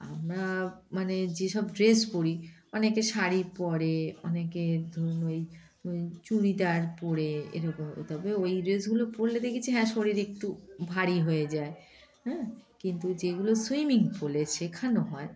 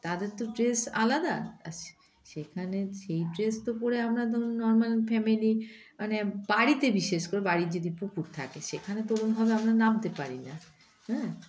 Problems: background sounds at intervals, background conversations at intervals